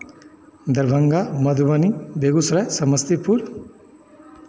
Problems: none marked